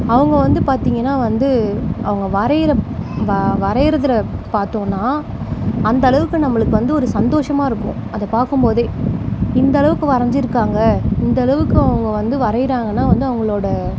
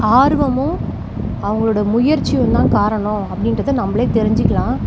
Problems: background sounds at intervals